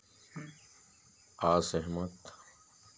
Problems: low volume